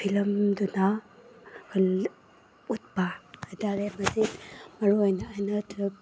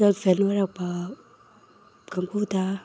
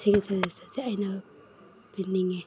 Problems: background sounds at intervals